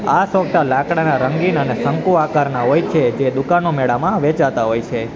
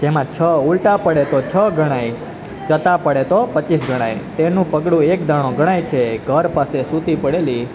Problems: constant background noise